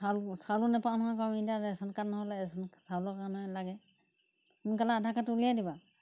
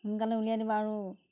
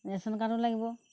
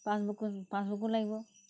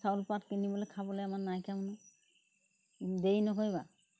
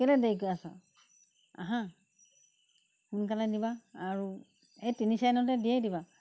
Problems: background sounds at intervals